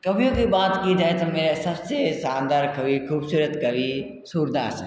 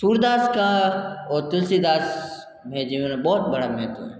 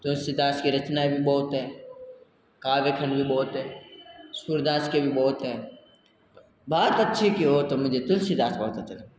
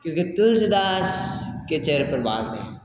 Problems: constant background noise